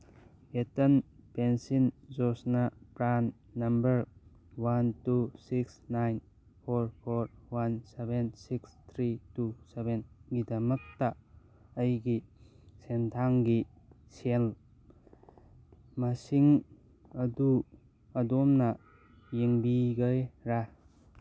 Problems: background sounds at intervals